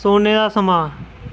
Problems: constant background noise